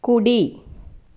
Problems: constant background noise